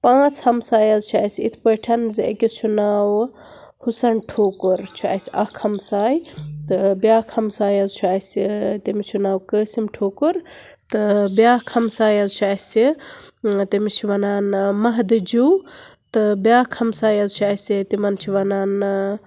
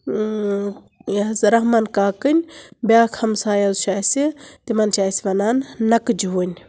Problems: none marked